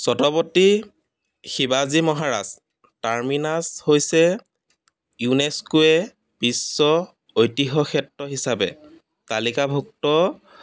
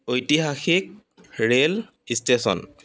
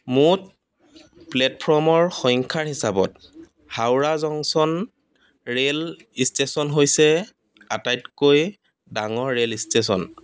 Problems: none marked